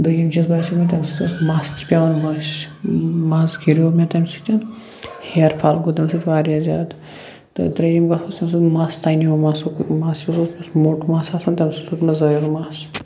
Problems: constant background noise